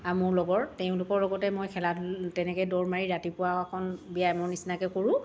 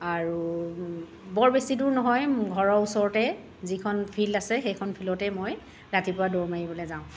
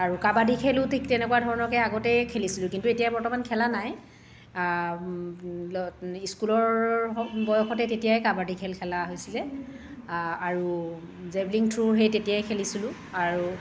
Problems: constant background noise